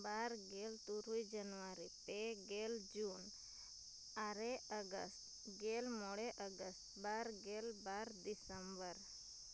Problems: constant background noise, low volume